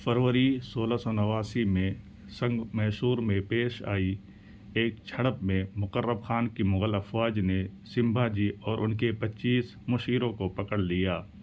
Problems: none marked